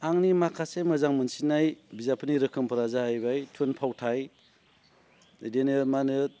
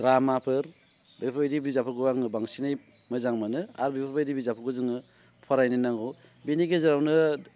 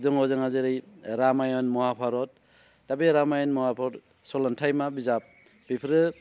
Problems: none marked